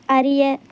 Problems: background sounds at intervals